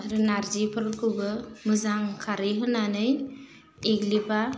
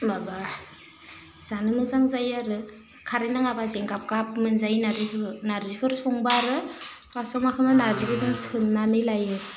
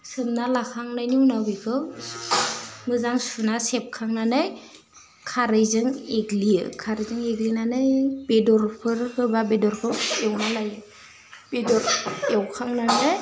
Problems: low volume